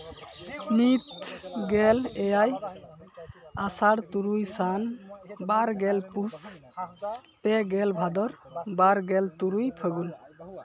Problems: continuous background conversations